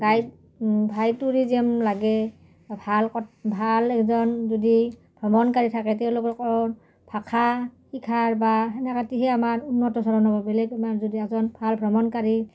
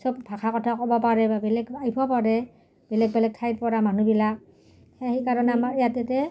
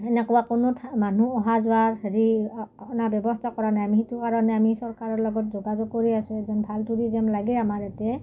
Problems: none marked